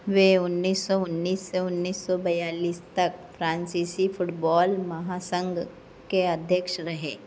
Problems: none marked